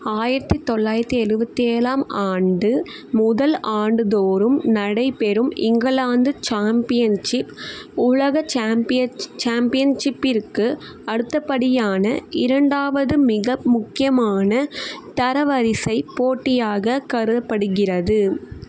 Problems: constant background noise